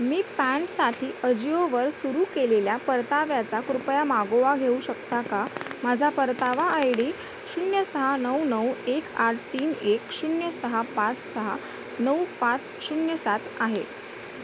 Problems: constant background noise